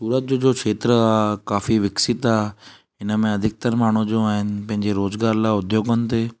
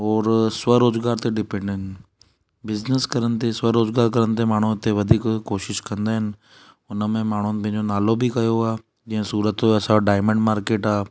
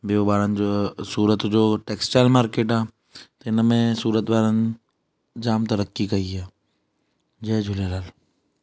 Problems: none marked